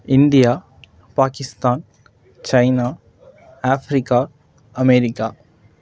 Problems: none marked